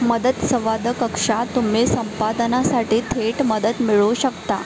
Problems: constant background noise, continuous background conversations